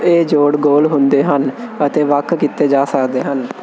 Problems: constant background noise